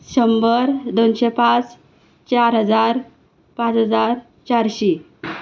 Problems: background sounds at intervals